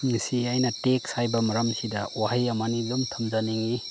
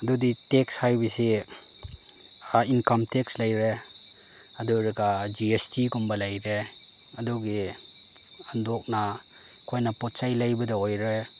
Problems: none marked